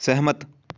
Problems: none marked